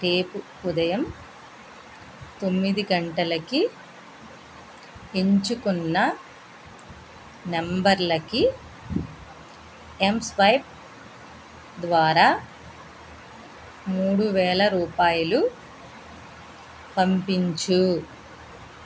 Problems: none marked